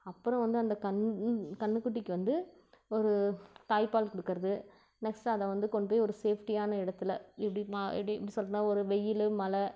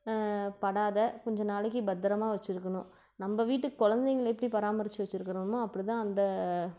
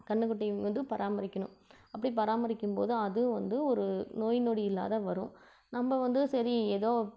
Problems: none marked